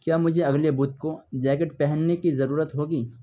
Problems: background sounds at intervals